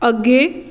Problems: none marked